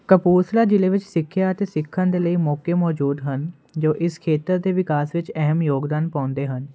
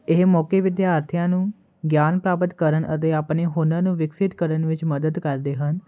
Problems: constant background noise